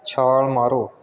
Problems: background sounds at intervals